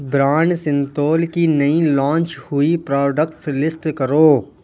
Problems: none marked